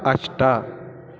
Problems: continuous background conversations